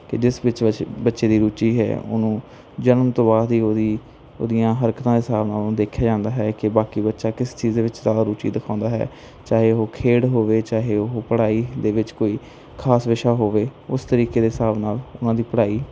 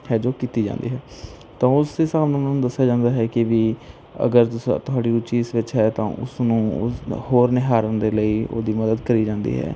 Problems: background sounds at intervals